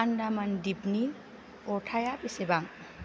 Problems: low volume